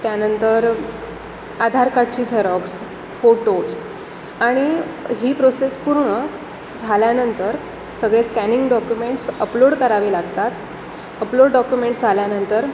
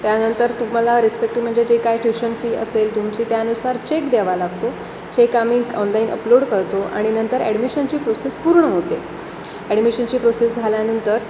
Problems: constant background noise, background conversations at intervals